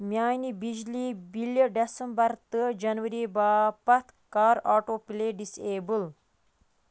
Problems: constant background noise